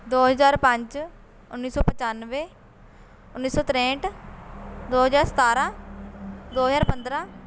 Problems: constant background noise